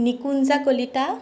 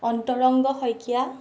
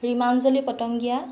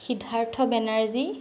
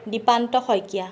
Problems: background sounds at intervals